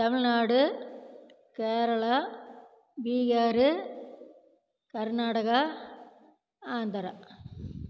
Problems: none marked